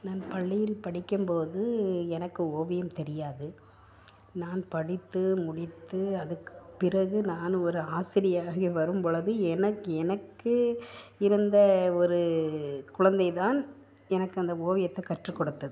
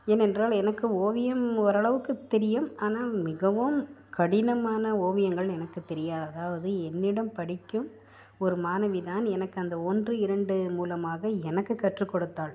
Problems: low volume